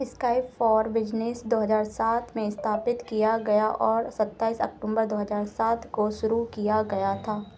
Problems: none marked